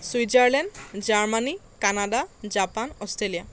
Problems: none marked